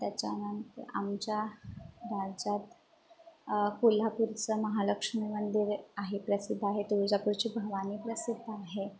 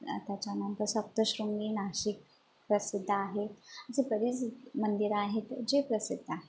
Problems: constant background noise, background conversations at intervals